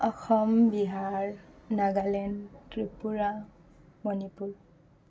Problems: none marked